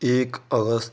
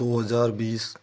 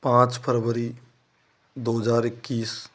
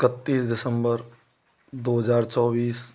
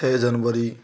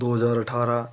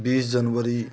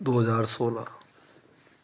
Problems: constant background noise